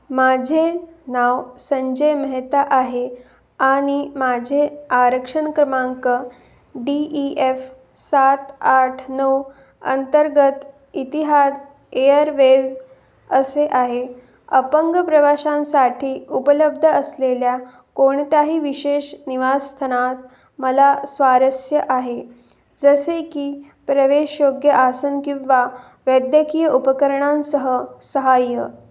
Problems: none marked